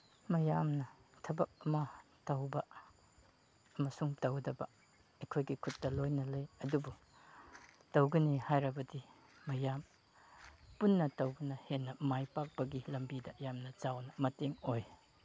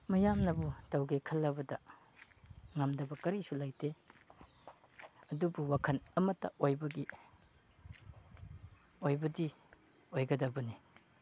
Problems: none marked